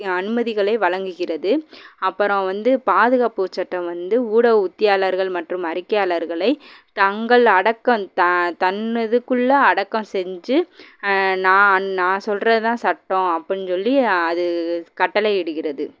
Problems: background sounds at intervals